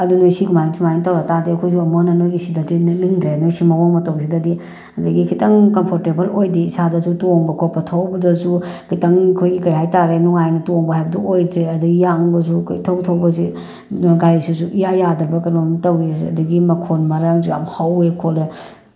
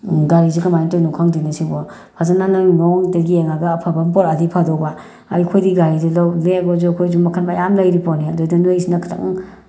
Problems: none marked